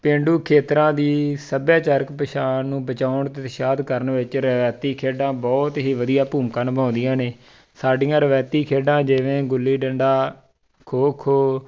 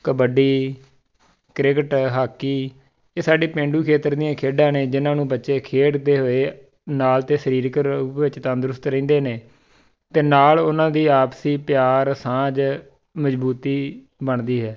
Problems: background sounds at intervals